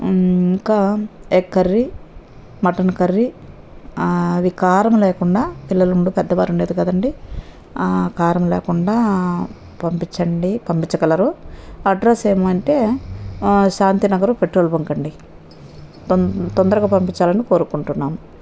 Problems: none marked